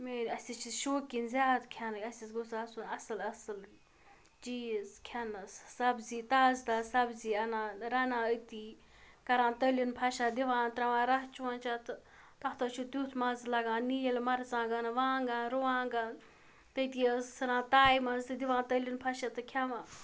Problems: background sounds at intervals